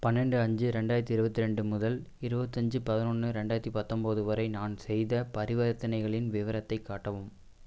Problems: constant background noise